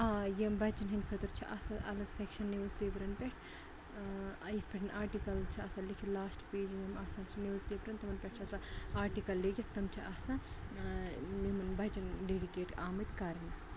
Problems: constant background noise, low volume